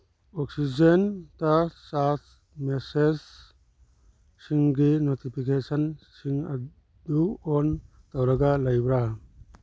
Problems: none marked